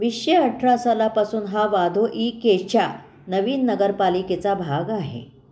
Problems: none marked